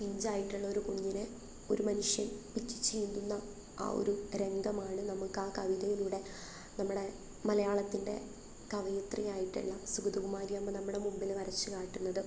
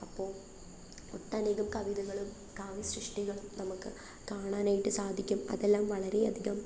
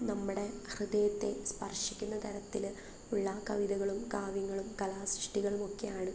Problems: background sounds at intervals, low volume